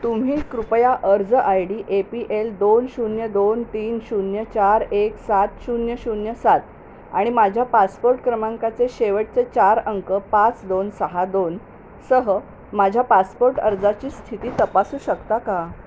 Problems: constant background noise